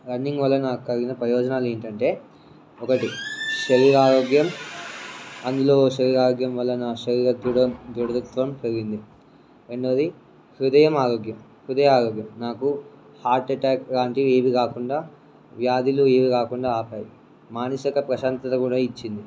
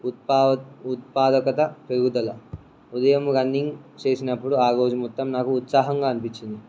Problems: background sounds at intervals